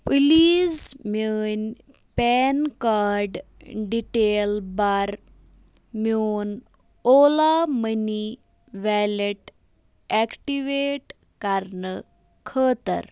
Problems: none marked